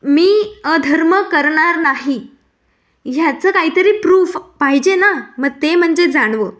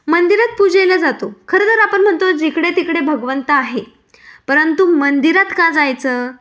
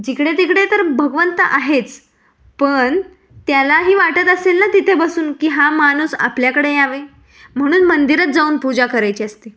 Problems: none marked